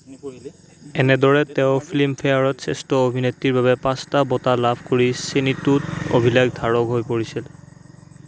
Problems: constant background noise